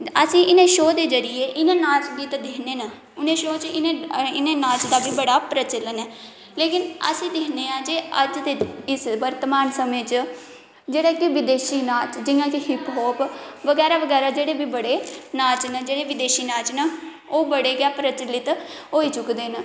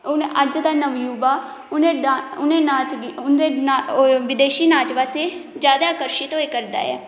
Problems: none marked